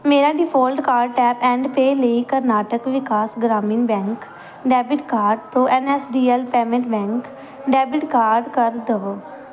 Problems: none marked